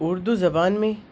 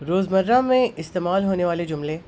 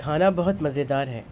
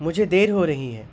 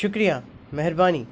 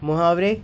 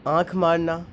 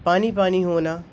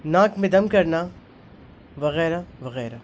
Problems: constant background noise